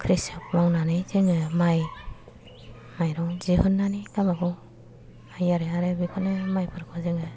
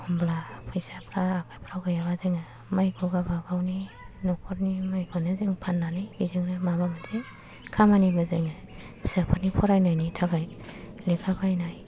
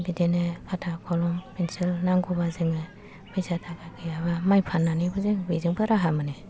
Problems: low volume